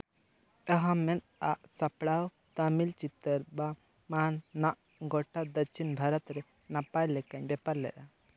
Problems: background sounds at intervals